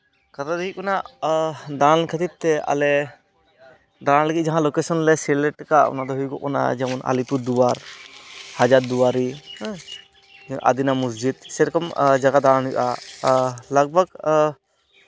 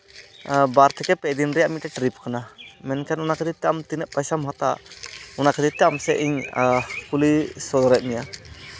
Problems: constant background noise